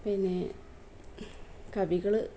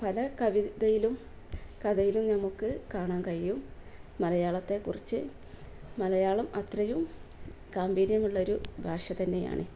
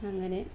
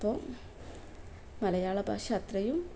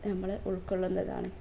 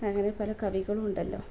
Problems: none marked